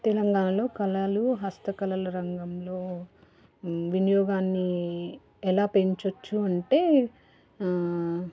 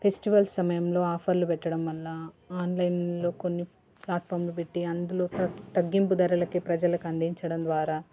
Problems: background conversations at intervals